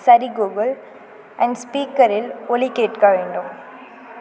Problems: none marked